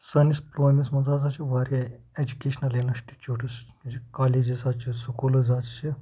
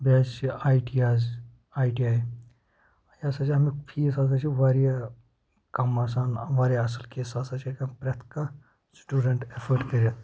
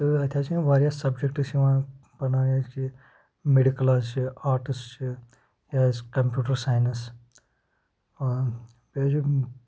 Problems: background sounds at intervals, low volume